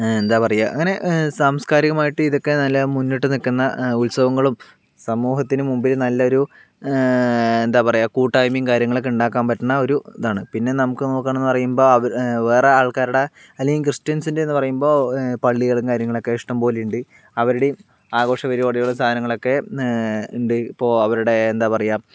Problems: none marked